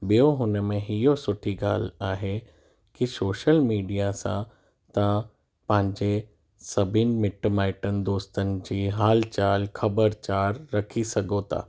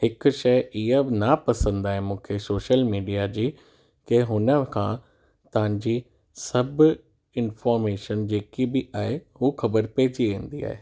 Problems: none marked